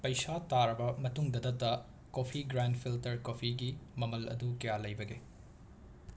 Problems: background sounds at intervals